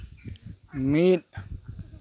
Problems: constant background noise